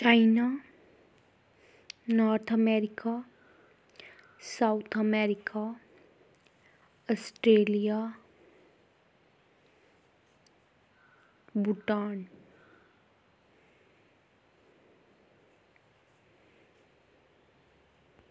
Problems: none marked